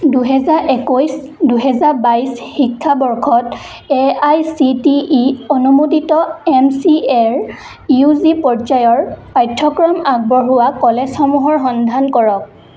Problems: none marked